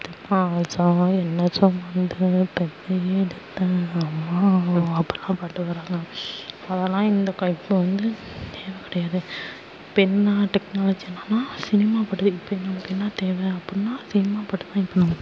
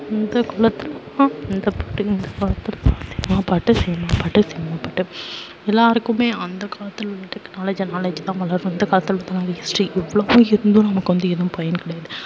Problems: background sounds at intervals, low volume